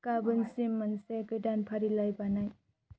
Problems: constant background noise